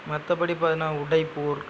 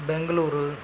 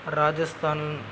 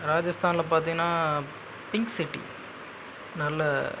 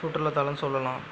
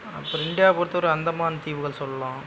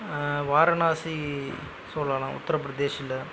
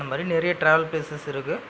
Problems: background sounds at intervals